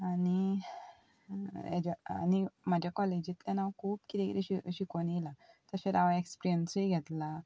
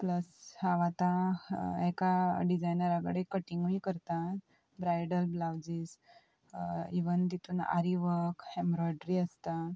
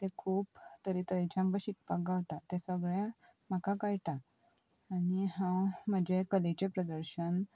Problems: none marked